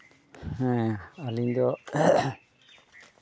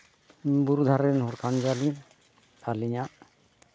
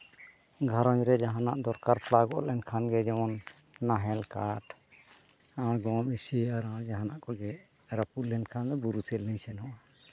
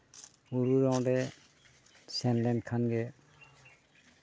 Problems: background sounds at intervals